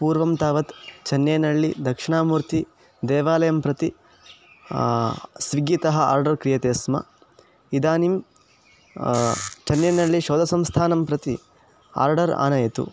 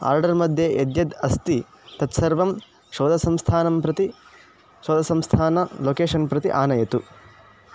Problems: background sounds at intervals